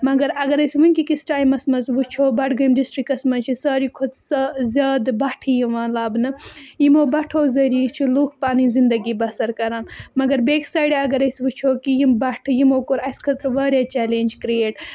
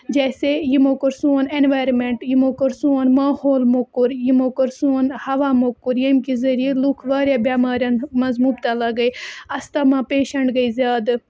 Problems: constant background noise